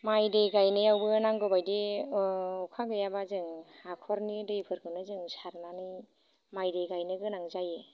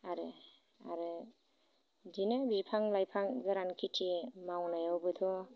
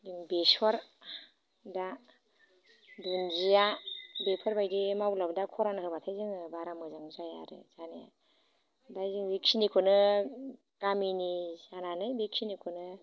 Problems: low volume